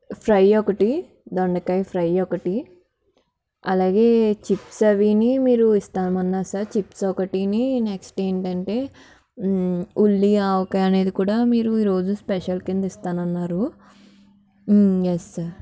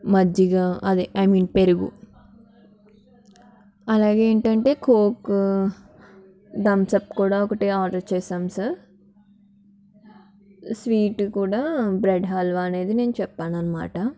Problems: background conversations at intervals